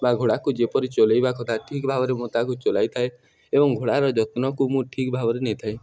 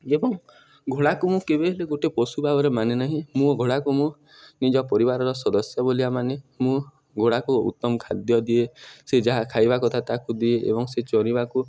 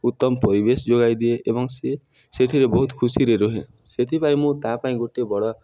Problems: background sounds at intervals, background conversations at intervals